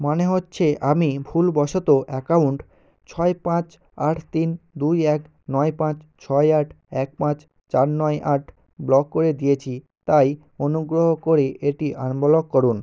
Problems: none marked